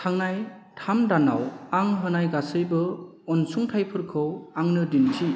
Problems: background sounds at intervals